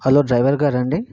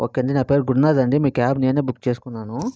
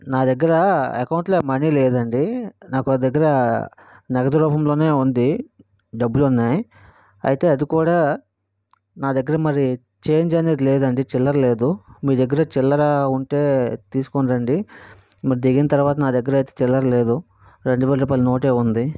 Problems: background sounds at intervals